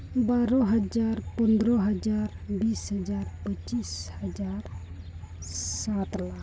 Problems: constant background noise, low volume